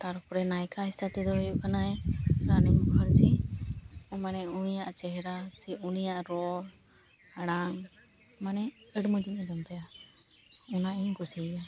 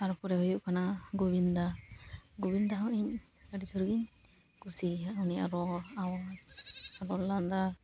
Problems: background sounds at intervals